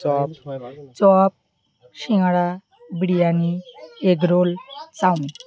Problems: none marked